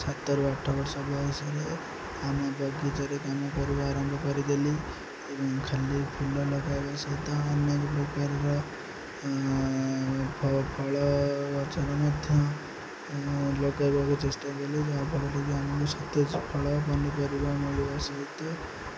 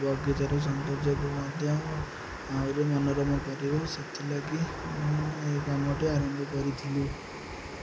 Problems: none marked